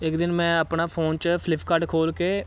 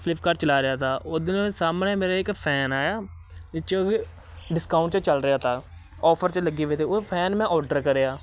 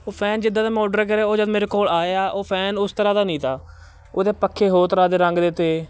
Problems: constant background noise